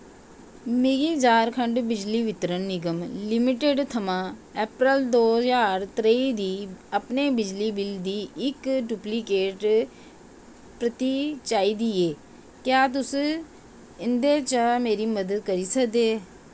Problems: constant background noise